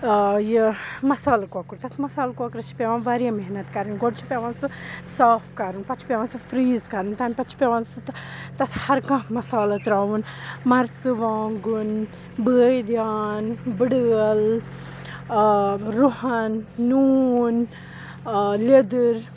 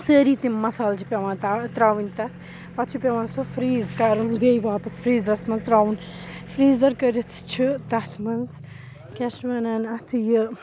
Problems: background sounds at intervals, background conversations at intervals